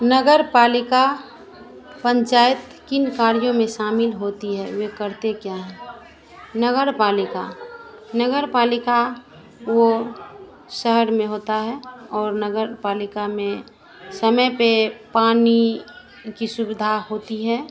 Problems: constant background noise